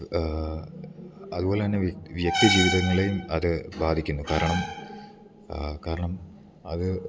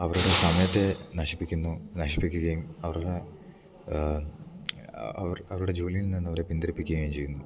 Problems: none marked